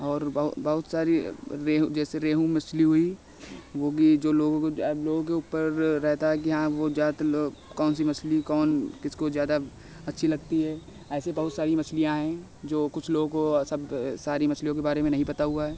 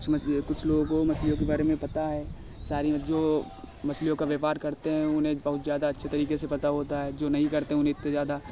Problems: constant background noise